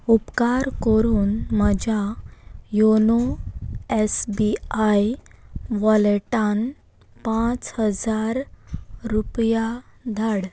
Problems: none marked